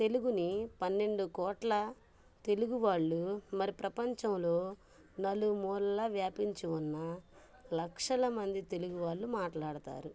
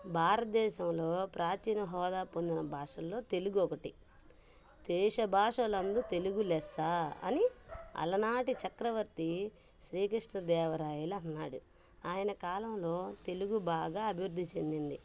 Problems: background sounds at intervals